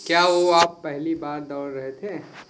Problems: constant background noise